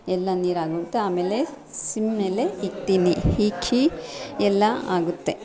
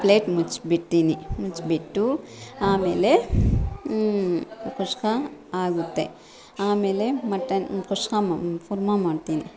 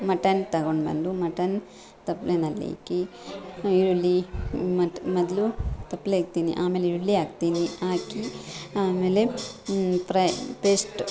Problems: background sounds at intervals, background conversations at intervals